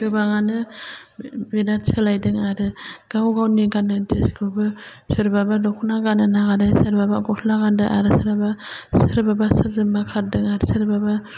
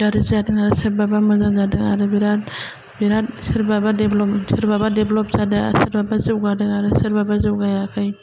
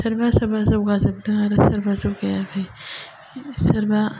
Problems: low volume